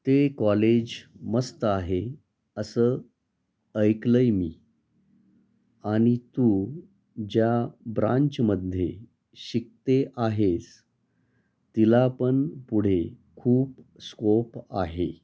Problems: none marked